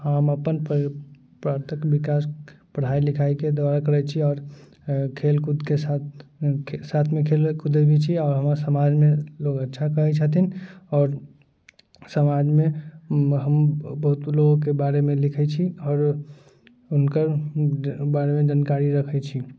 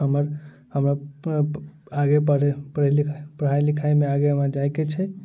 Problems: background sounds at intervals